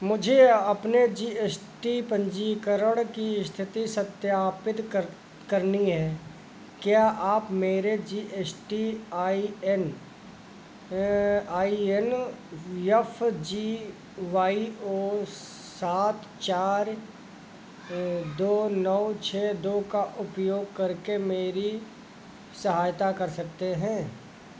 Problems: none marked